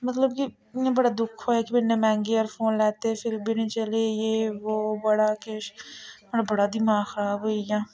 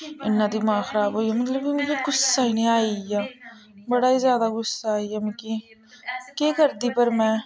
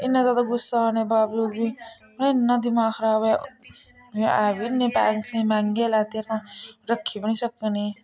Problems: constant background noise, background conversations at intervals